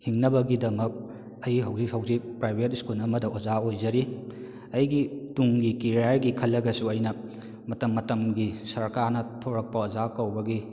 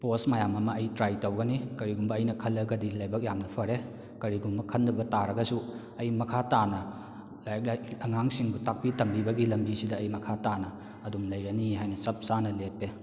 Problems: echo